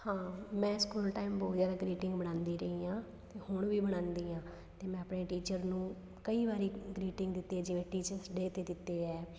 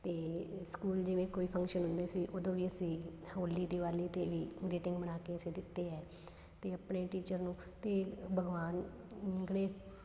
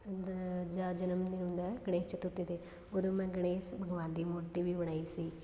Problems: background sounds at intervals